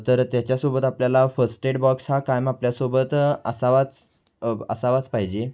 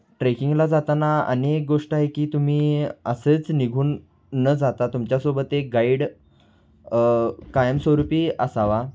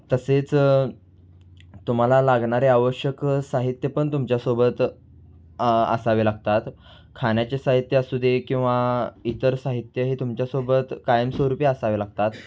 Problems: none marked